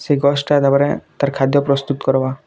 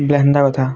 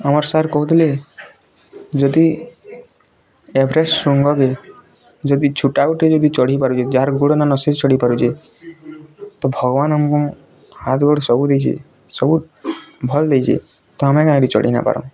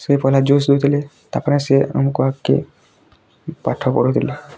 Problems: constant background noise, continuous background conversations